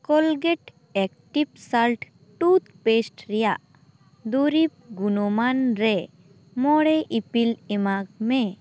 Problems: constant background noise